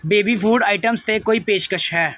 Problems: background sounds at intervals